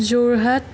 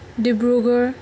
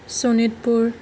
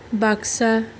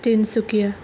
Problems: constant background noise